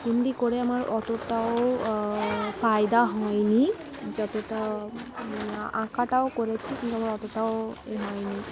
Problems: constant background noise, continuous background conversations